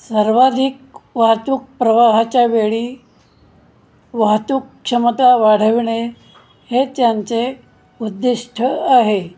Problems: none marked